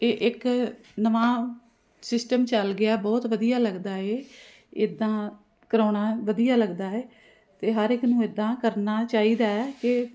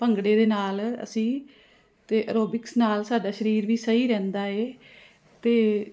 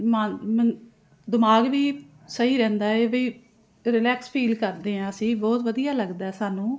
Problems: constant background noise